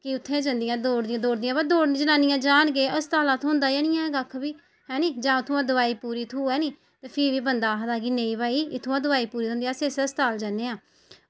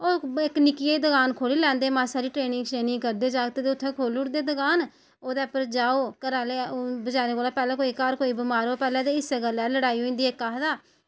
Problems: background sounds at intervals